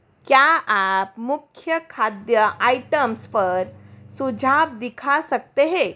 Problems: none marked